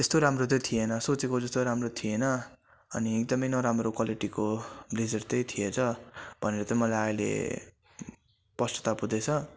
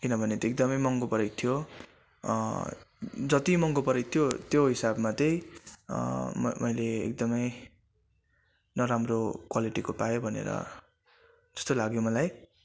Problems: constant background noise